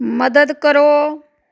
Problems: background sounds at intervals